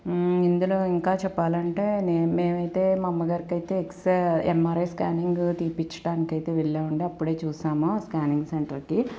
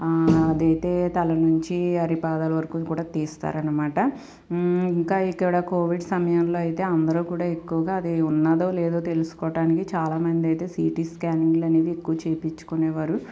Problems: constant background noise